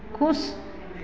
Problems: none marked